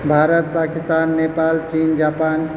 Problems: constant background noise